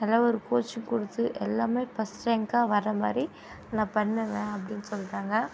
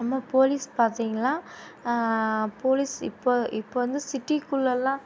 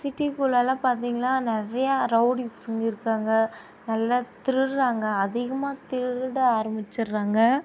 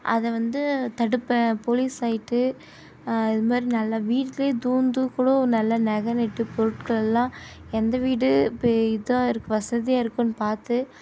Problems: constant background noise